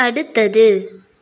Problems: none marked